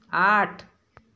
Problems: background sounds at intervals